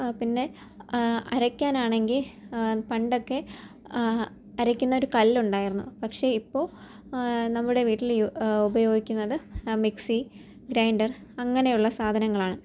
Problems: low volume